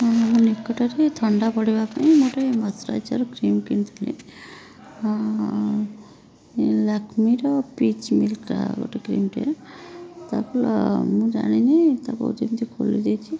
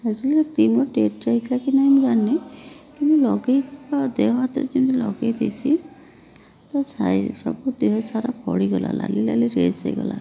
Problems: background sounds at intervals